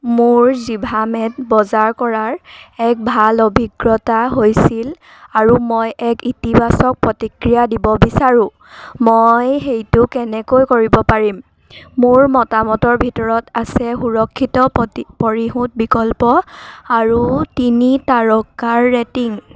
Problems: background sounds at intervals